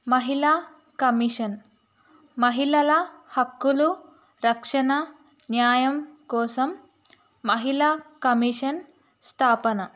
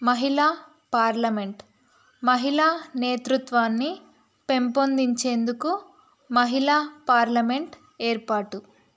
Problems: none marked